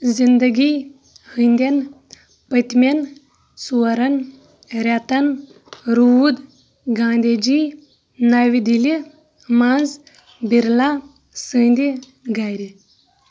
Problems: background sounds at intervals